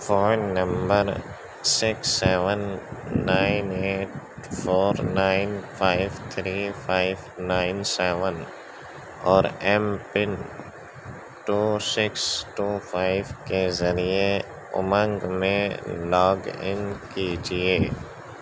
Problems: constant background noise